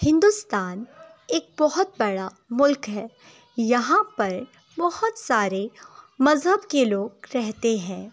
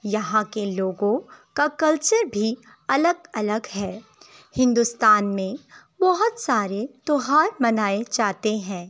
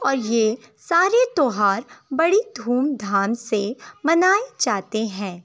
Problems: background sounds at intervals, background conversations at intervals